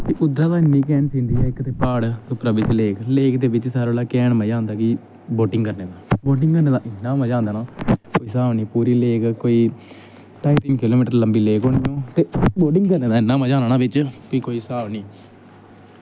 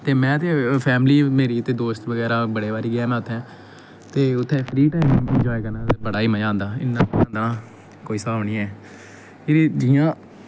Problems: background sounds at intervals